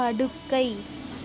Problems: none marked